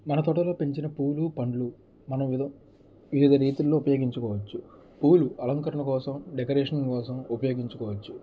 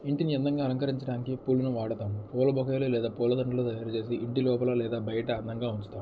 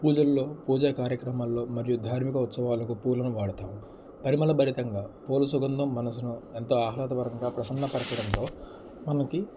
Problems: constant background noise, low volume